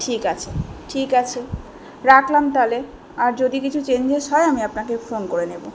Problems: background conversations at intervals